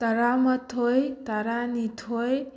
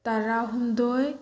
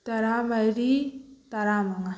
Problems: background sounds at intervals